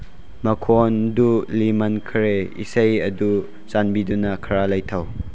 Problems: background sounds at intervals